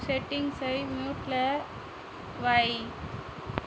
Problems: constant background noise